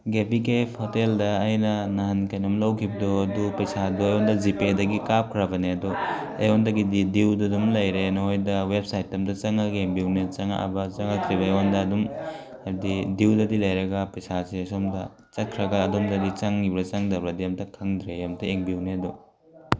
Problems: background conversations at intervals